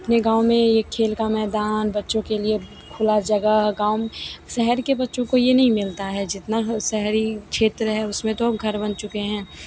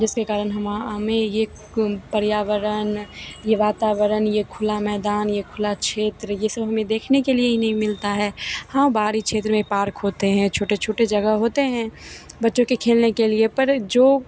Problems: constant background noise, background conversations at intervals